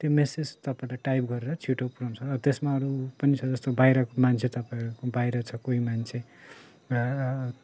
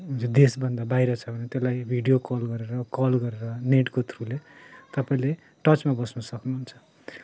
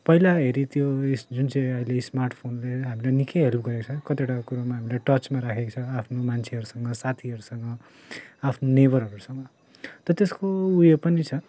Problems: none marked